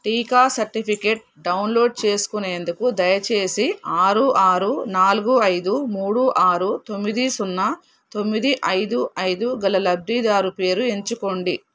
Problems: background sounds at intervals